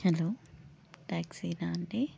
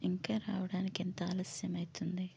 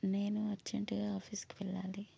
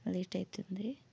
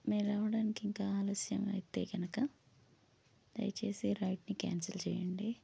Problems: low volume